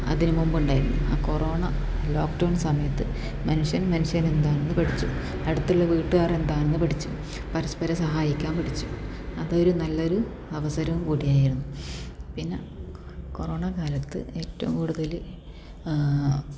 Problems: background sounds at intervals